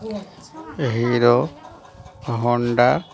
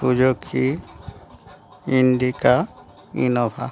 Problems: continuous background conversations